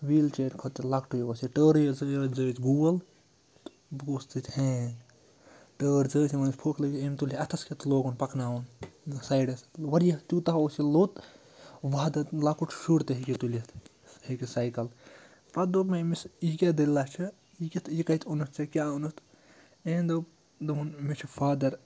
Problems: constant background noise